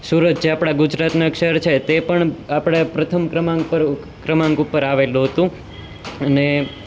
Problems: constant background noise